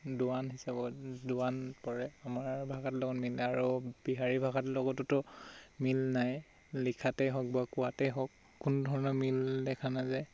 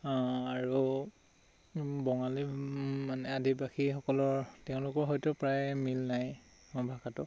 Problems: constant background noise